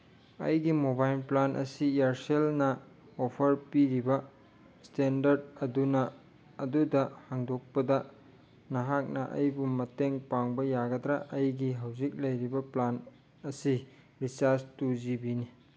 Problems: background sounds at intervals